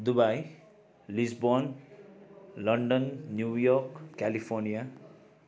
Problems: continuous background conversations